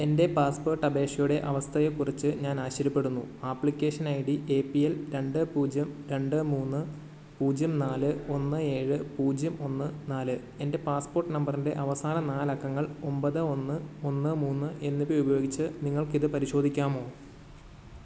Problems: none marked